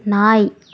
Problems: constant background noise